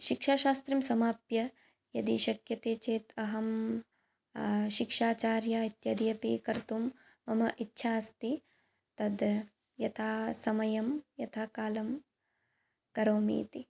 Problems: background sounds at intervals